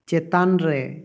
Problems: echo